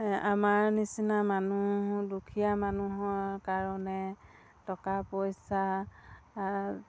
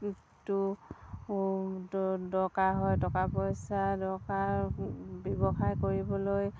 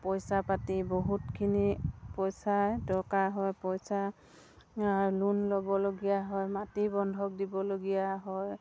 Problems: none marked